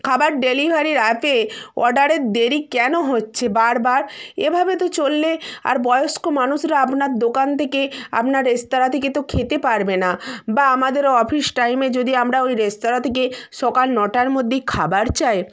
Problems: constant background noise